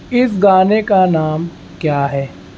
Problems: constant background noise